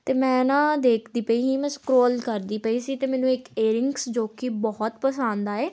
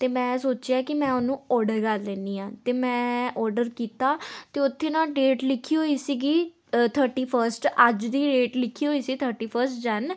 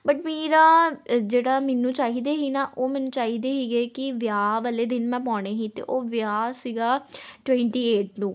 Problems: none marked